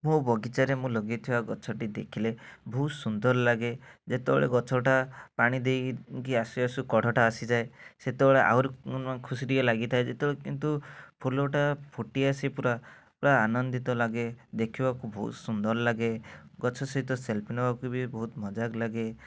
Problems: none marked